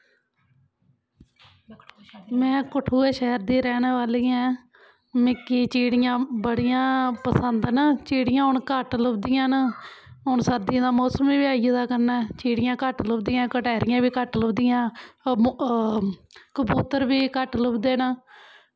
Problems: background sounds at intervals